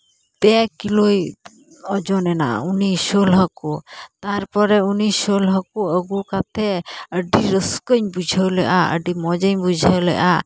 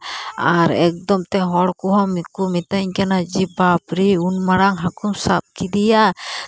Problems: constant background noise